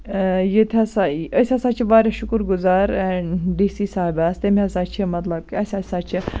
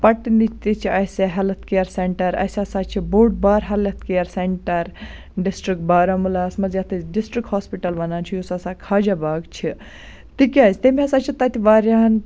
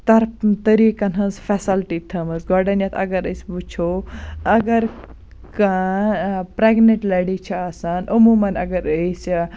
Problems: constant background noise